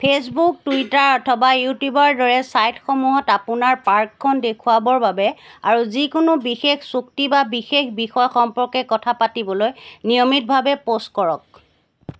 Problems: none marked